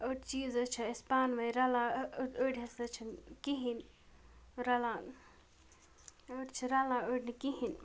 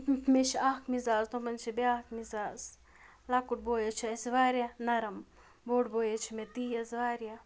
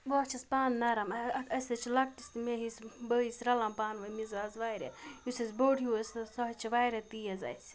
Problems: background sounds at intervals